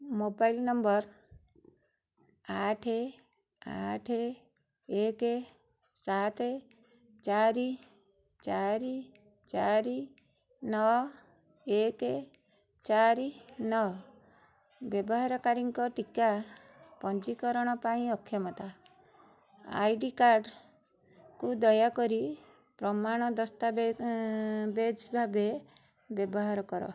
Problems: constant background noise